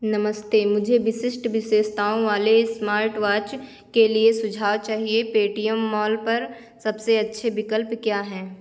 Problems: none marked